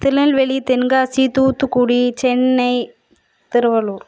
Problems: background sounds at intervals